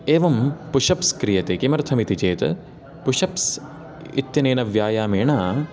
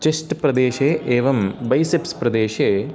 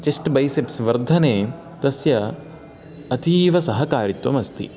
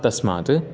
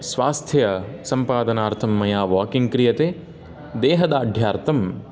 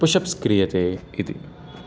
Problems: background sounds at intervals, echo